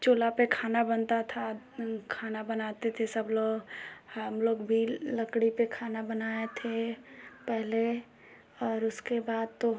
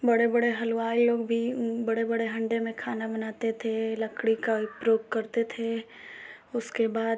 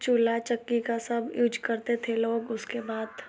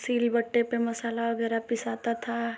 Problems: constant background noise